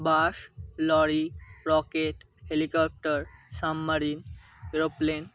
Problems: none marked